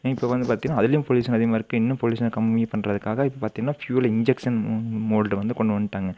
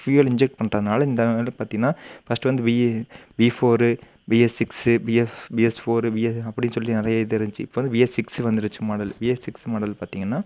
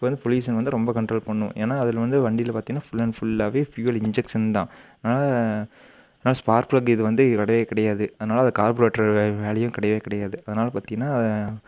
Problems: none marked